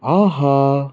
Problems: constant background noise